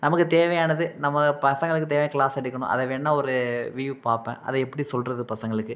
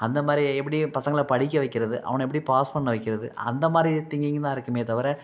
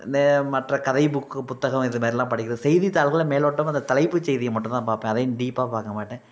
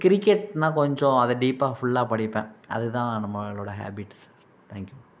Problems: none marked